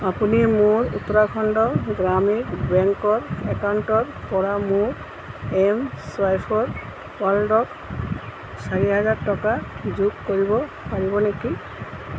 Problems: constant background noise